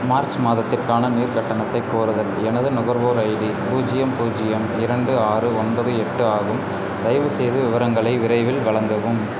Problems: constant background noise